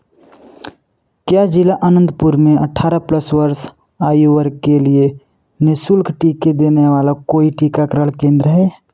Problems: none marked